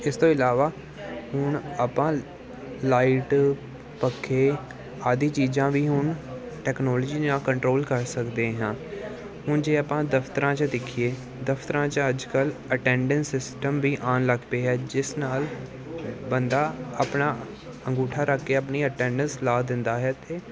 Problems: none marked